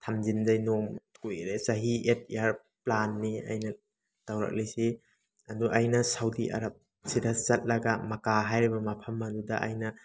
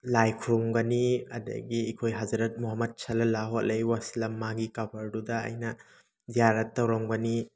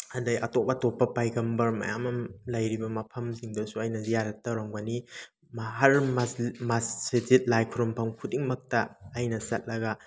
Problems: background sounds at intervals